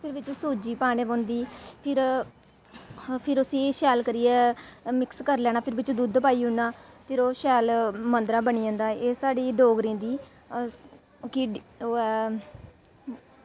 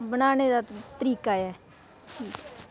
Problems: constant background noise